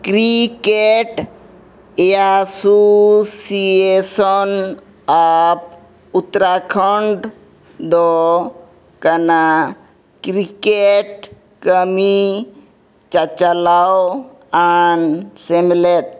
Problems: background sounds at intervals